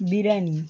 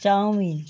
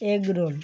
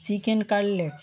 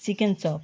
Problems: constant background noise